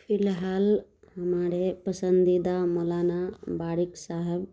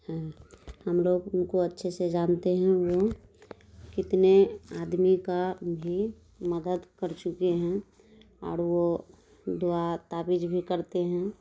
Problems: none marked